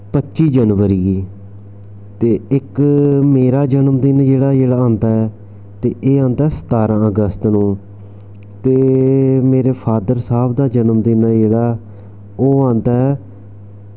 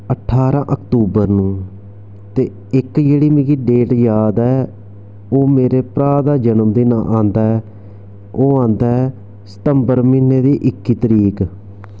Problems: constant background noise